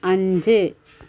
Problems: background sounds at intervals